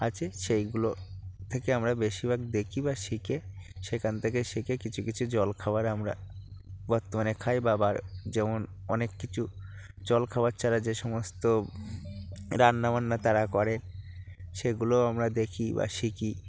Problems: constant background noise, background conversations at intervals